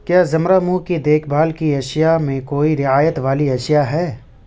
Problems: none marked